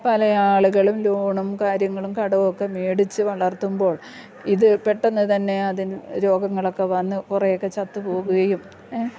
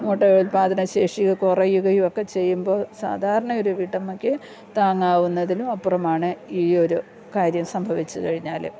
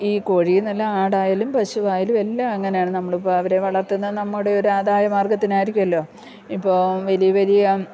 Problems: low volume